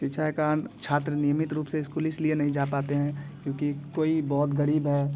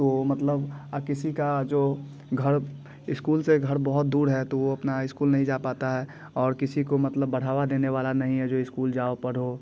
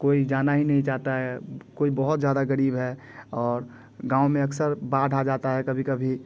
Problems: constant background noise, background conversations at intervals